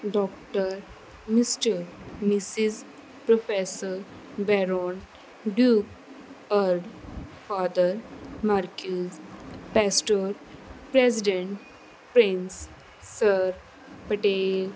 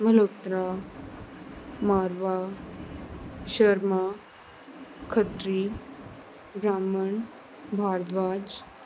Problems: none marked